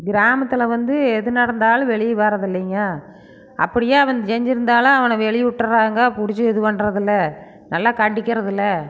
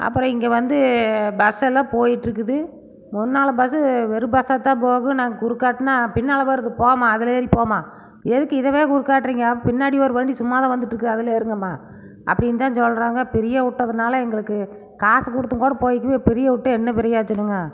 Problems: background sounds at intervals